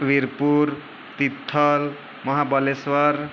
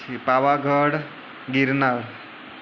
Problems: none marked